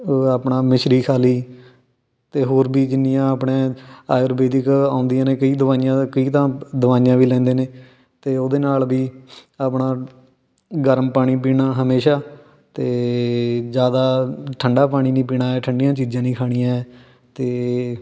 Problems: none marked